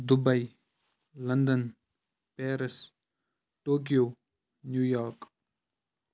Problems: none marked